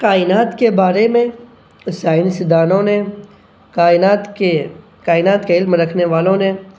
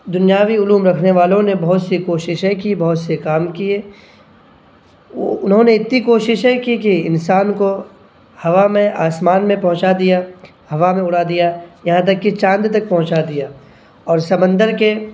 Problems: none marked